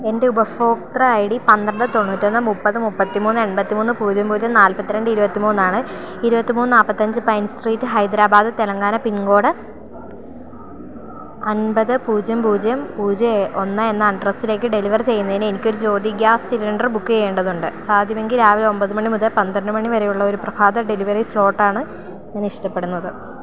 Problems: none marked